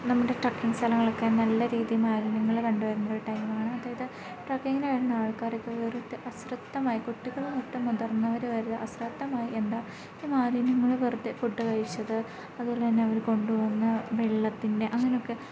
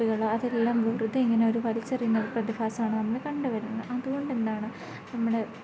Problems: none marked